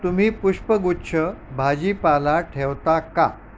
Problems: none marked